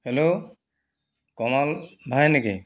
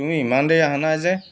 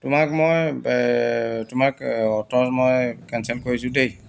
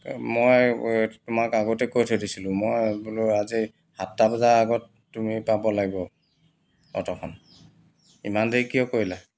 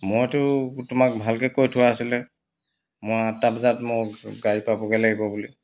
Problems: background sounds at intervals